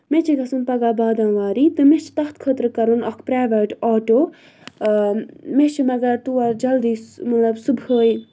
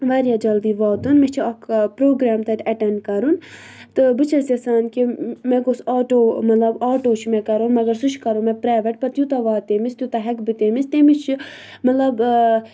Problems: low volume